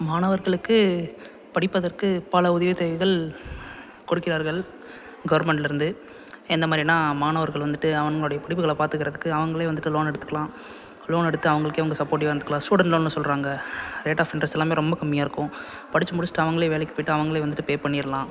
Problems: background sounds at intervals